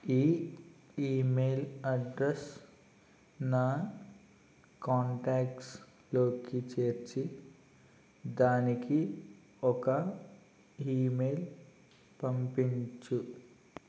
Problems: constant background noise, low volume